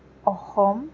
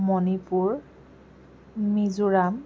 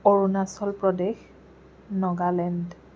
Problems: constant background noise